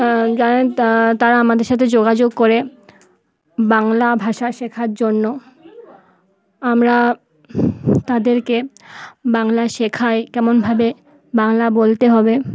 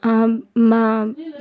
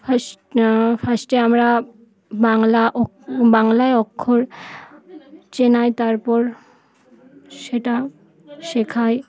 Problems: constant background noise